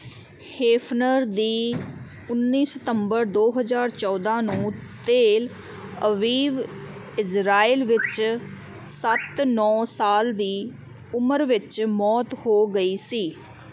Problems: none marked